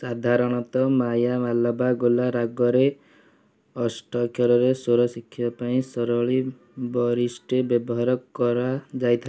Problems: none marked